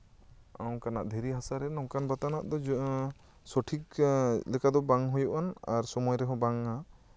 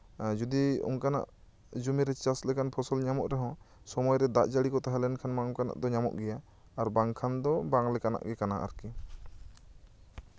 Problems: none marked